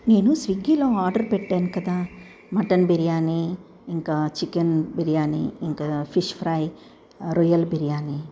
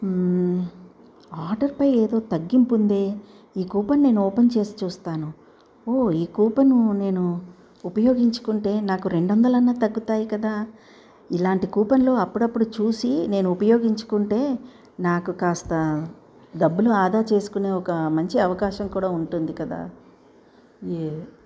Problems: none marked